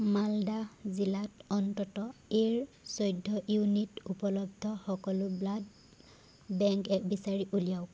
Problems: background sounds at intervals